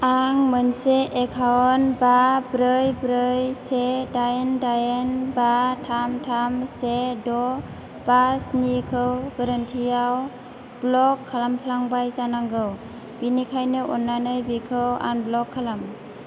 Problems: constant background noise